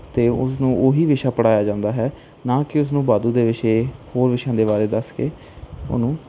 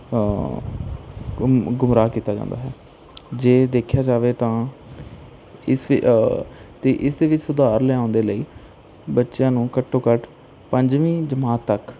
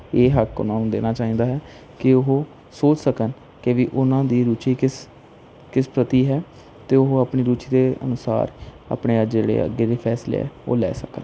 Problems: background sounds at intervals